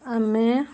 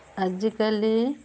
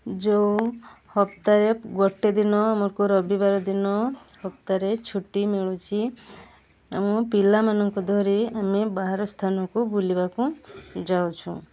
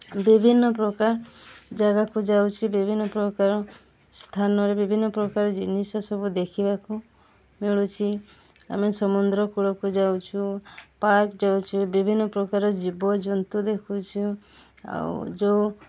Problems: none marked